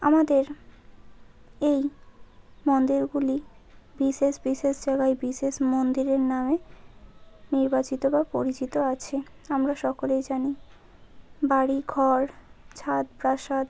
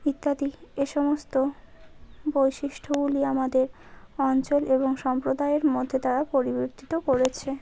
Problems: none marked